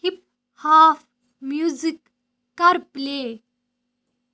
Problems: none marked